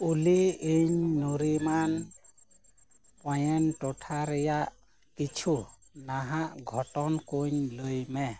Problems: none marked